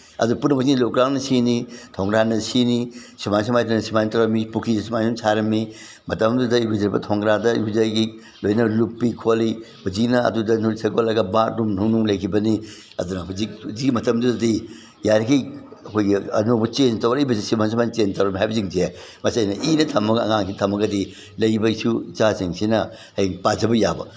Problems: none marked